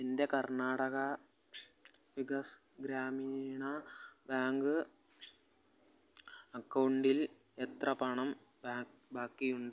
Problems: background sounds at intervals, low volume